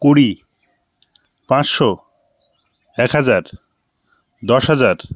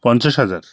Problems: constant background noise